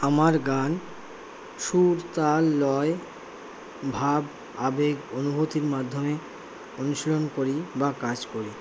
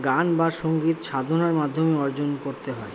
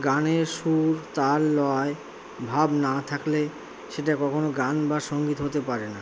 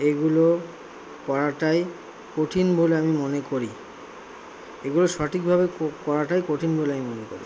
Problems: constant background noise